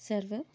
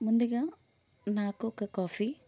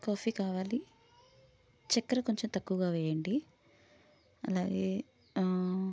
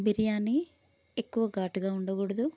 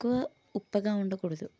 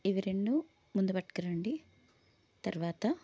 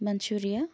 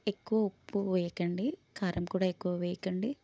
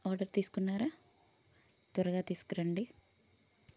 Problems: none marked